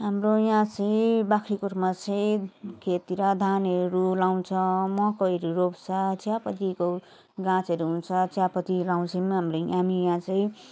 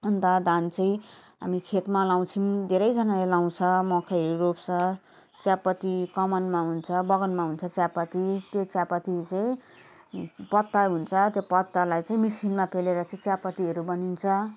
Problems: background sounds at intervals